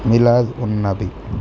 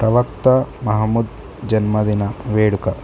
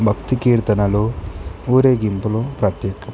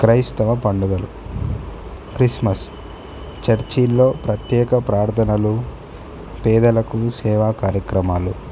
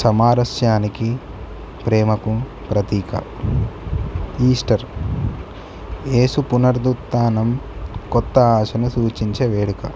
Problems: none marked